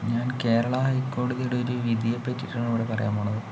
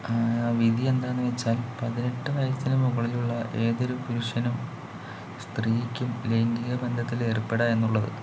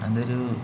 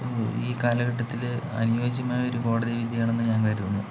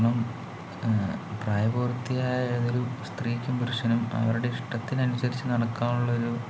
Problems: none marked